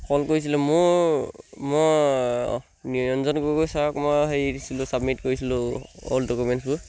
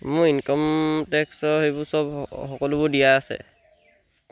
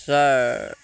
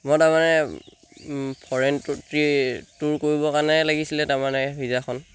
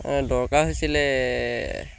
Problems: none marked